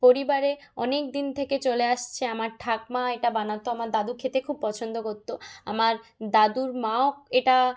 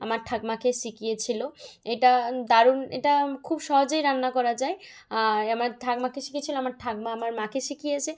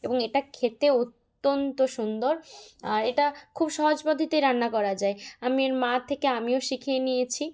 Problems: background sounds at intervals